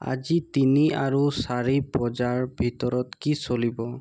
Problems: constant background noise